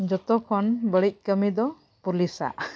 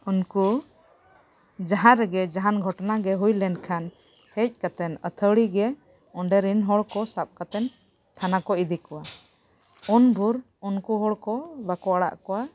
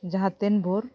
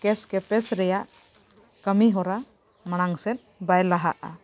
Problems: background sounds at intervals